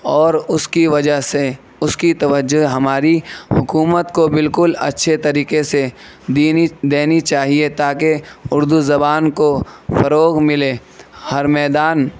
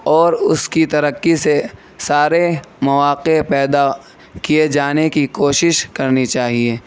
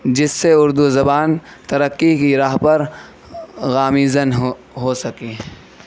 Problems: constant background noise